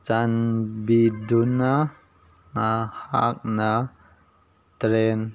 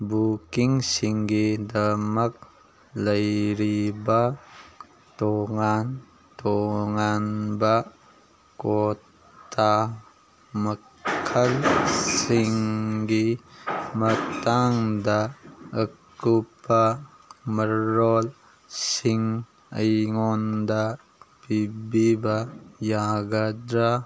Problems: background conversations at intervals